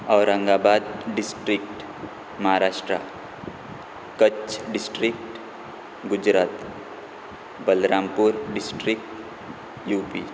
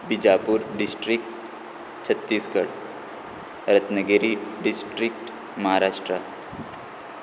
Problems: none marked